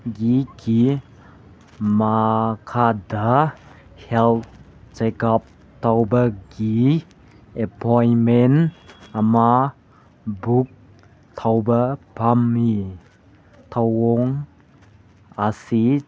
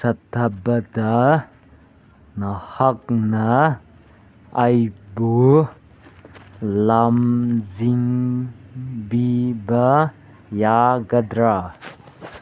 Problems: none marked